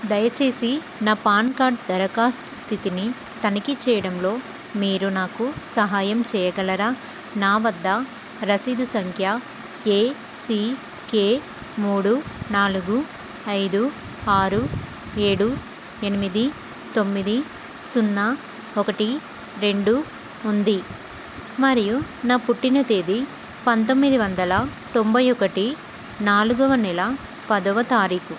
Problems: constant background noise